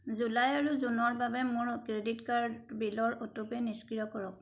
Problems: background sounds at intervals